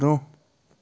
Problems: none marked